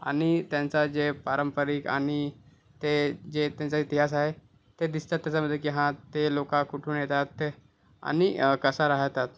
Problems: none marked